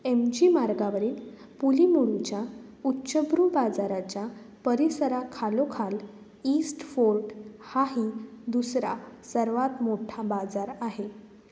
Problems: background sounds at intervals